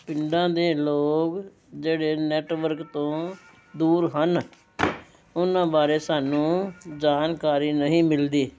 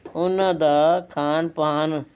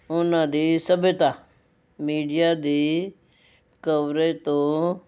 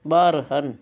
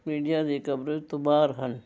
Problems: background sounds at intervals